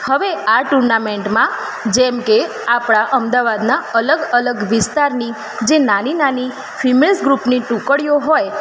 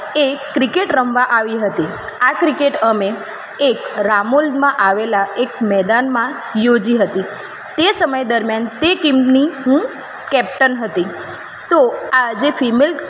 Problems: constant background noise